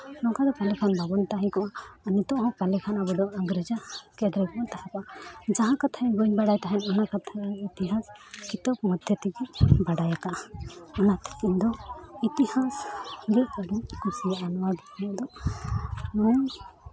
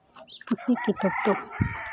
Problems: background sounds at intervals, continuous background conversations